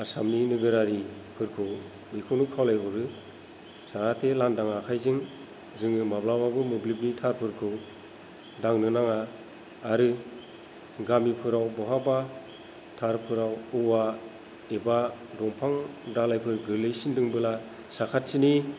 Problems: low volume